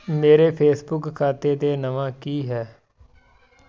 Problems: continuous background conversations